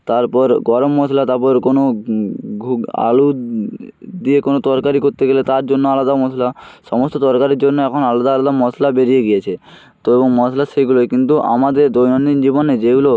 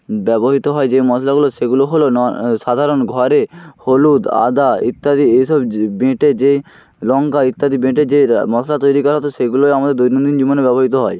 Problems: constant background noise